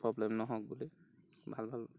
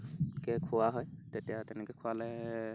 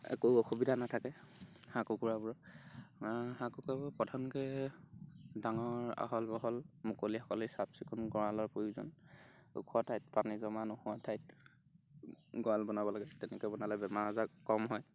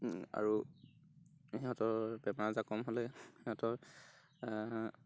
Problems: none marked